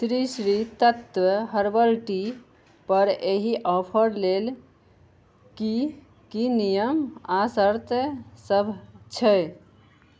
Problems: none marked